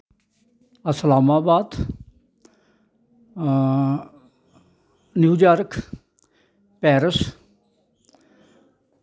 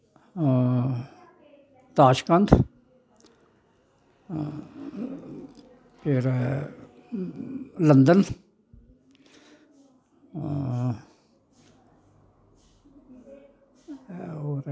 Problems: constant background noise